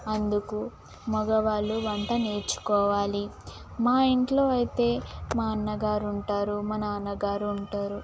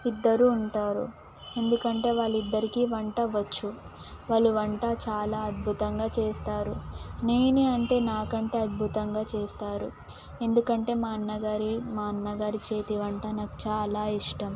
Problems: constant background noise